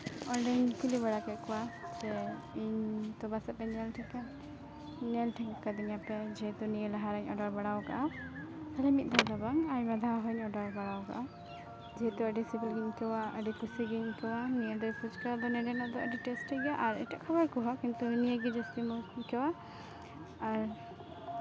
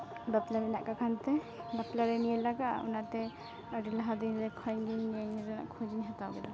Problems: constant background noise